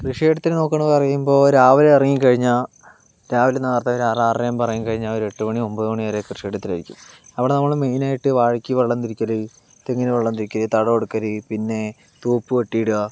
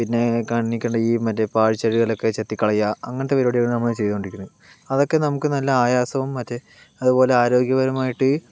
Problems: none marked